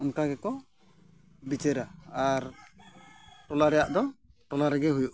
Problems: background sounds at intervals